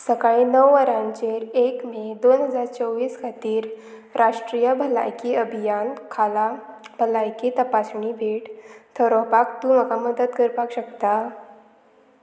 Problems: constant background noise